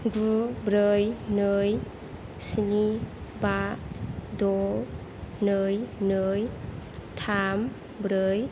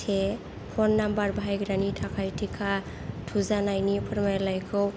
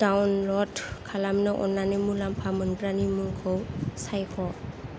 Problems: none marked